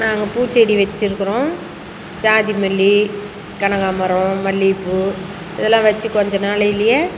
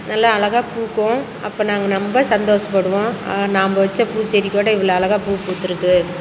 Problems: none marked